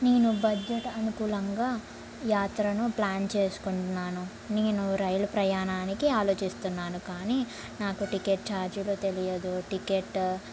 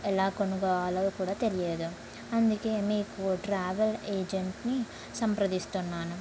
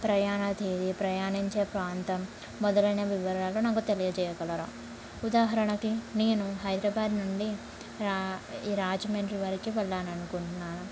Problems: low volume